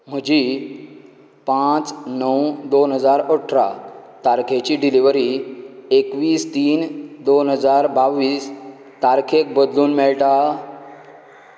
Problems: none marked